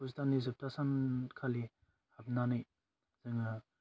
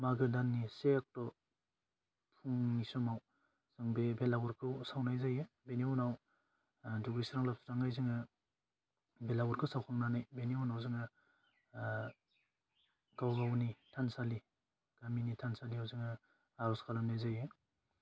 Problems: constant background noise